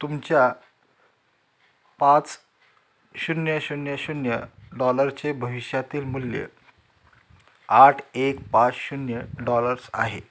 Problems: background sounds at intervals